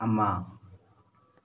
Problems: none marked